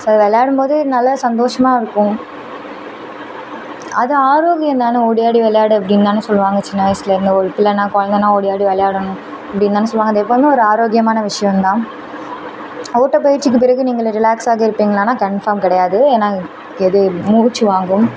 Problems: constant background noise